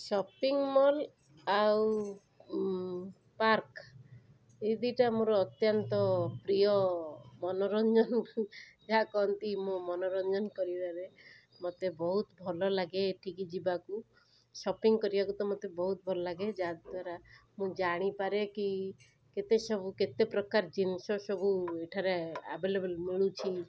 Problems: none marked